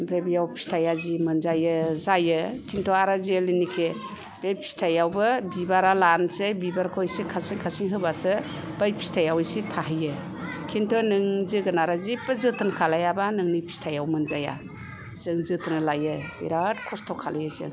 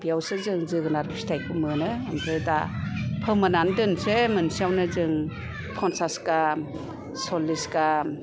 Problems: low volume